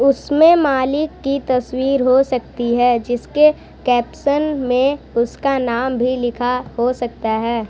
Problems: constant background noise, continuous background conversations